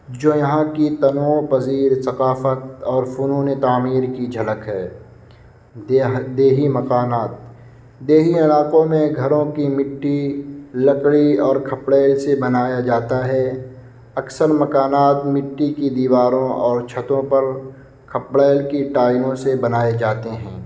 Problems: constant background noise